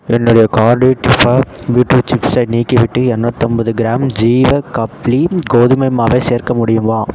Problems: background sounds at intervals